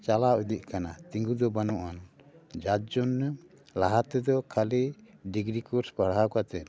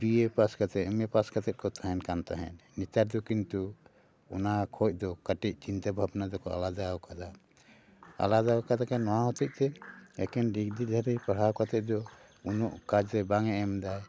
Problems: background sounds at intervals, background conversations at intervals